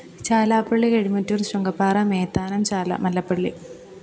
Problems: none marked